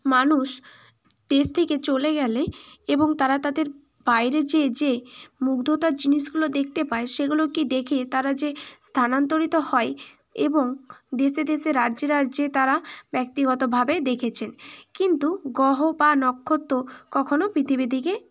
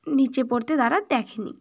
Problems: none marked